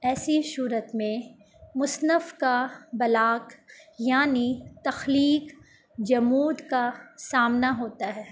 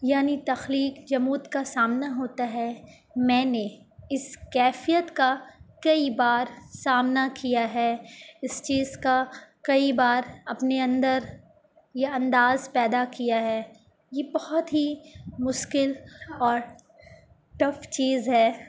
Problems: none marked